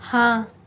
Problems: constant background noise